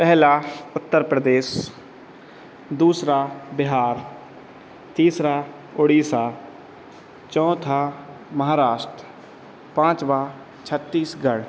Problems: constant background noise